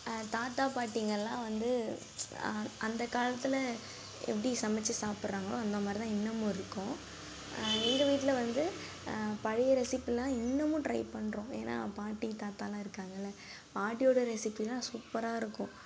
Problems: background sounds at intervals, low volume